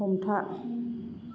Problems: constant background noise